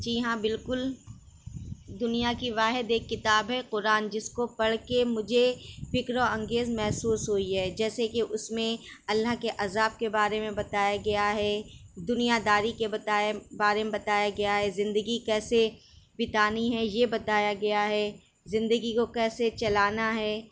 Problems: none marked